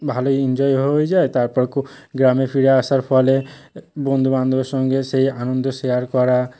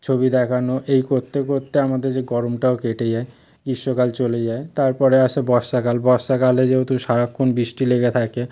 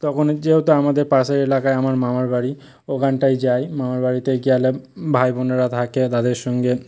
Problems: background sounds at intervals